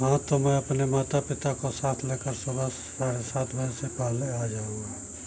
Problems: none marked